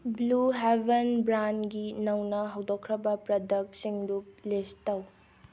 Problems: background sounds at intervals